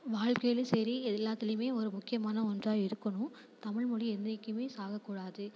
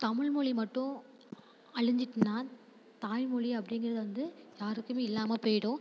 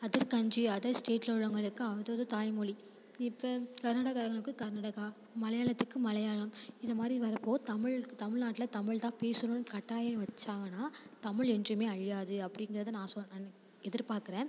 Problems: constant background noise